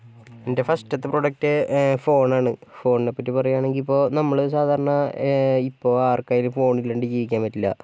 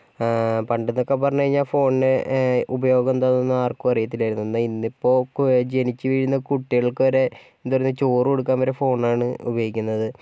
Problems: none marked